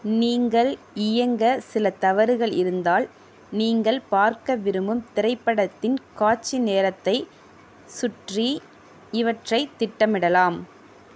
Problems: none marked